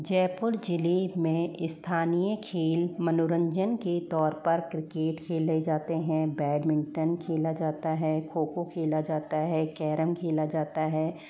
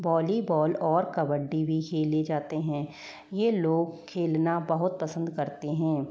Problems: low volume